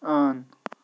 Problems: constant background noise